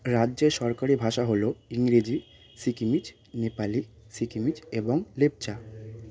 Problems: constant background noise